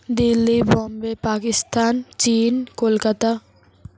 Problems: constant background noise